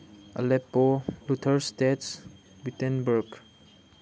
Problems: none marked